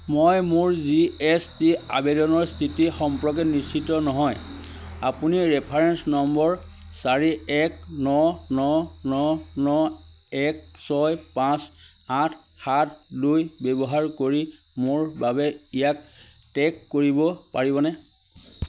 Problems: constant background noise